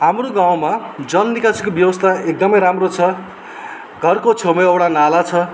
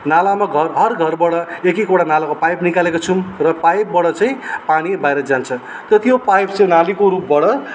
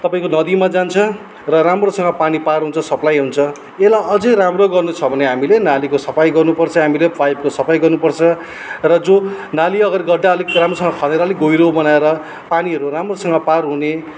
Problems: background sounds at intervals